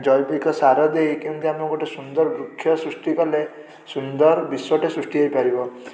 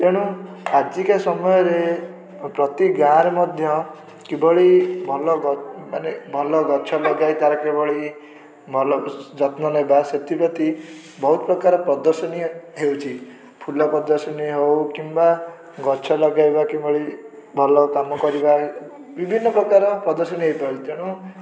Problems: background sounds at intervals, background conversations at intervals